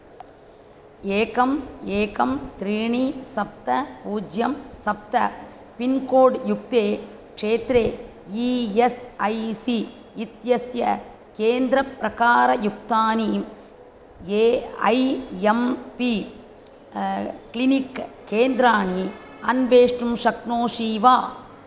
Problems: none marked